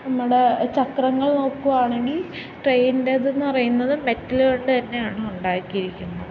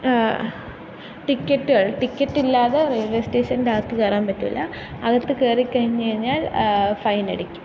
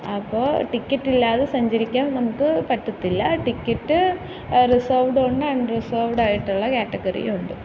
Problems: constant background noise